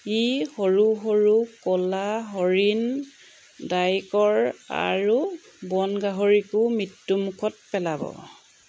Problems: background sounds at intervals